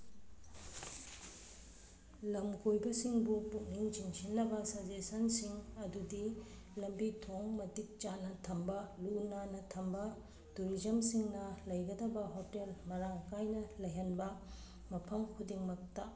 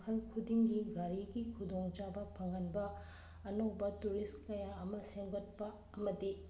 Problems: background sounds at intervals